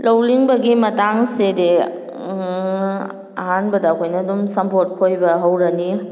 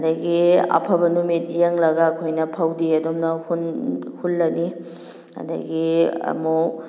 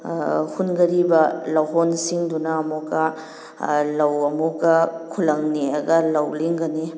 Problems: none marked